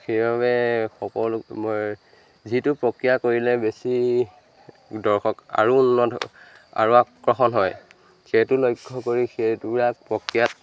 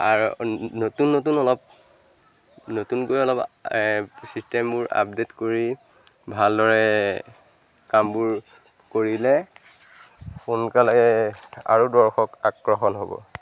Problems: constant background noise, background conversations at intervals